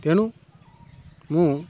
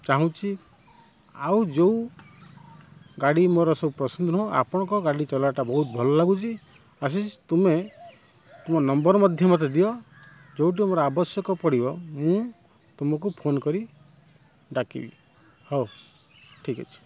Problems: constant background noise